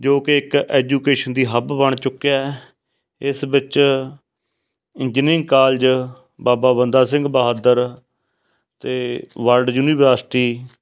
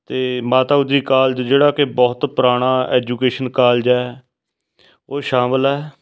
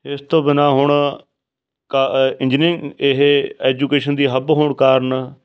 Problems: background sounds at intervals